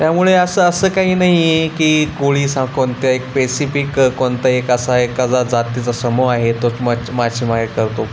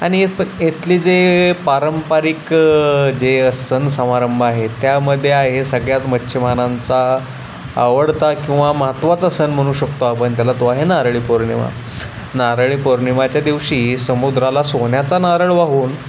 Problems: constant background noise